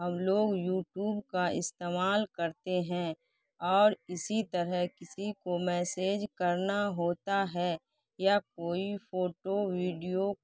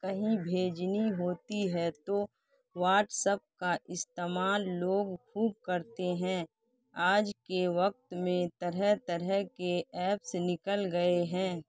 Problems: none marked